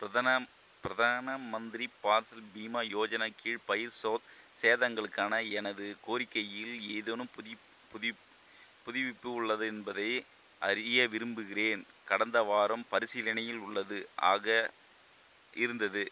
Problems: constant background noise